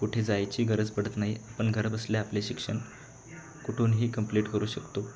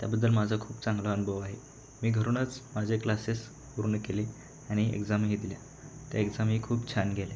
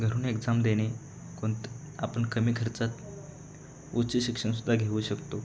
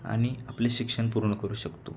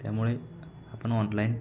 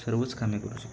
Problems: constant background noise, continuous background conversations